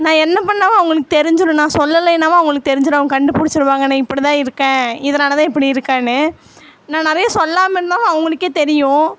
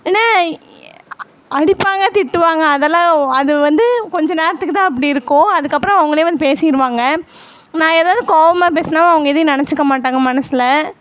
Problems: constant background noise